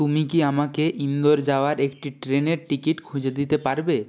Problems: constant background noise